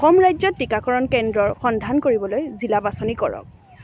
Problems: constant background noise